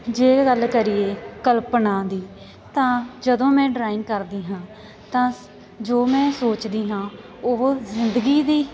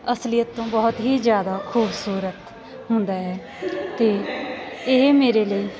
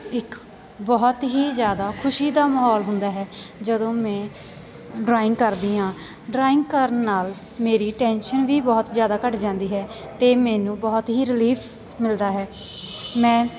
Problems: background sounds at intervals, continuous background conversations